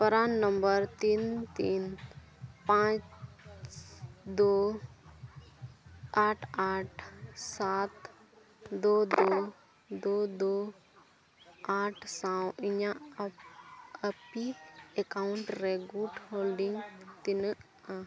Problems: constant background noise, continuous background conversations, low volume